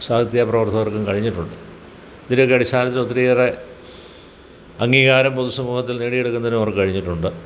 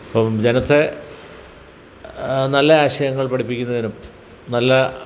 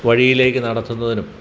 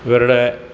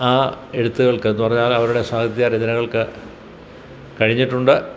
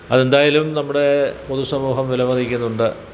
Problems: background sounds at intervals